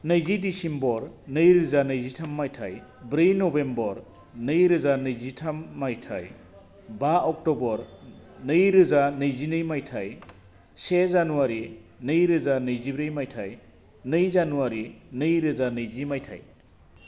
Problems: constant background noise